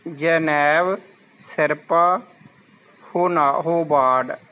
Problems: constant background noise